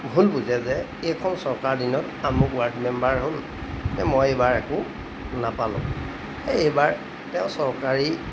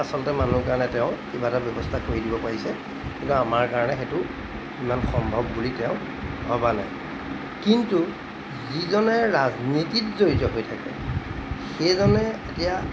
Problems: background sounds at intervals